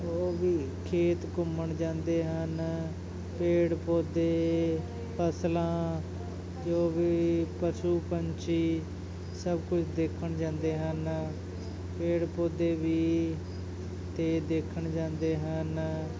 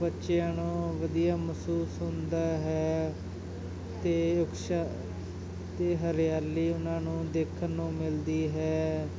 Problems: continuous background conversations